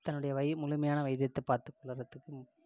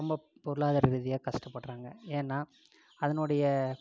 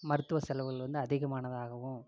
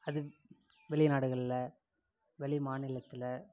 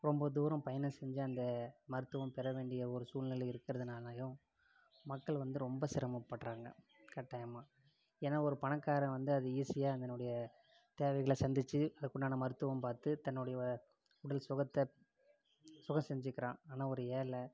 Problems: low volume